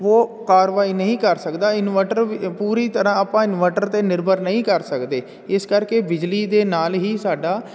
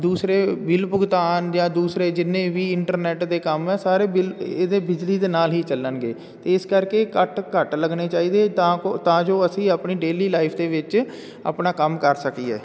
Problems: none marked